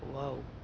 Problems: low volume